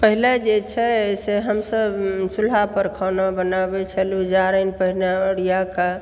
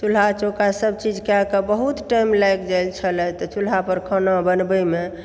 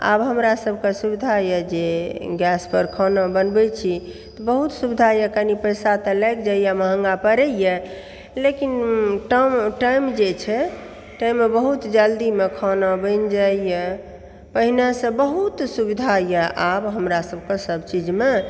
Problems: background sounds at intervals